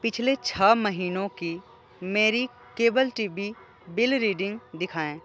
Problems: none marked